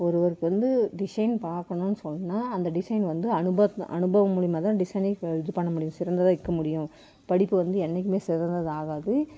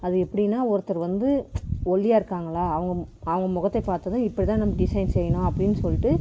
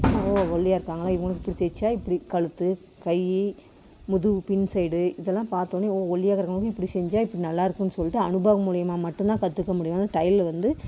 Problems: none marked